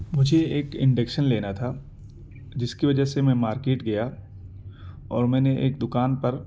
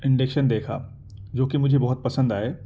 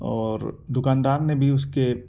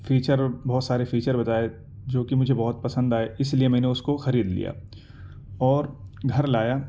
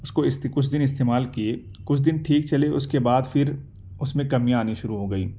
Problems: none marked